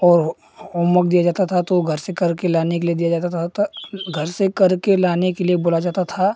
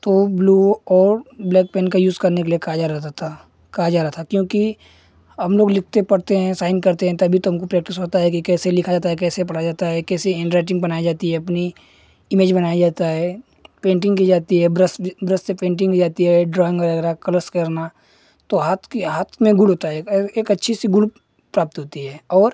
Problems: none marked